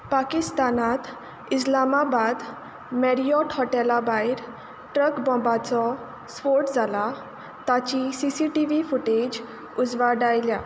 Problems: none marked